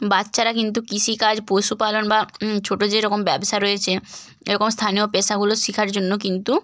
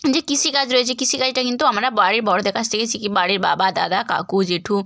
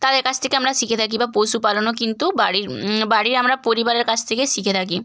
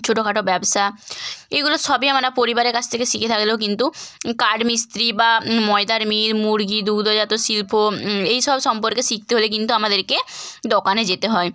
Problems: background sounds at intervals